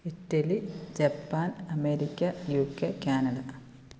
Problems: constant background noise, low volume